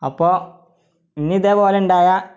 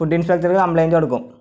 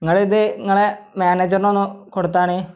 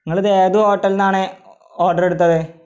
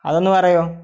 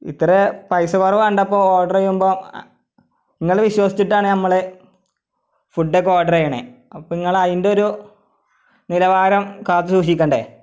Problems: none marked